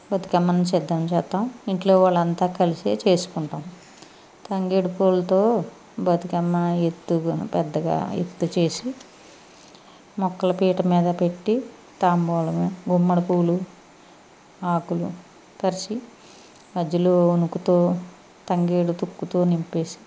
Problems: none marked